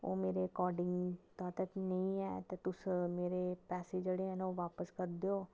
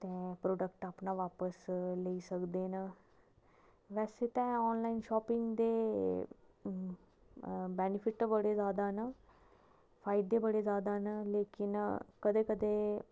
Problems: low volume